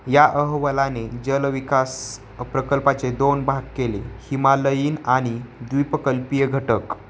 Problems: constant background noise